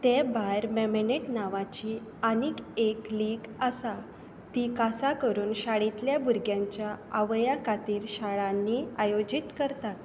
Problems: constant background noise